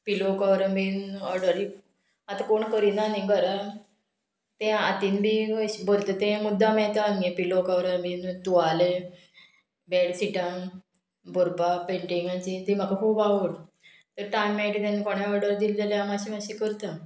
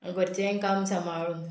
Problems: none marked